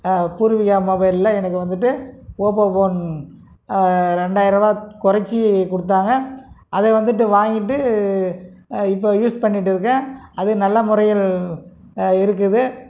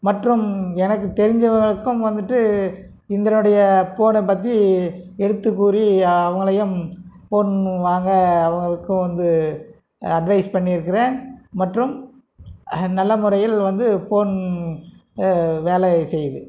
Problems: none marked